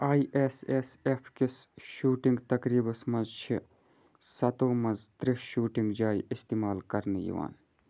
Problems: background sounds at intervals